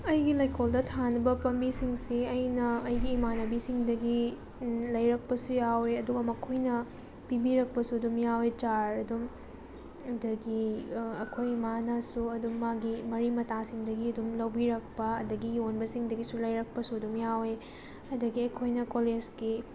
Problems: background sounds at intervals